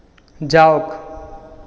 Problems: echo